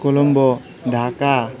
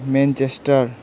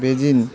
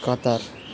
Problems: constant background noise, continuous background conversations